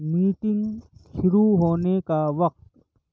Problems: background sounds at intervals